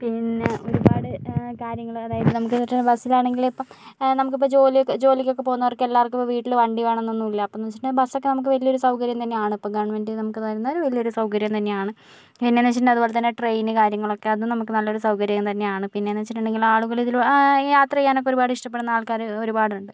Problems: background sounds at intervals